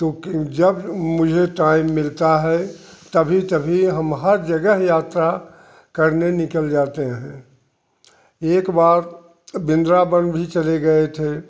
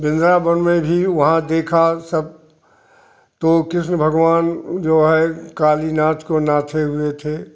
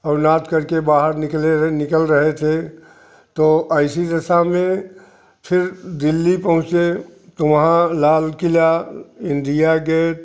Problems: constant background noise